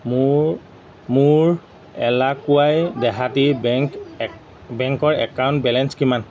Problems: background conversations at intervals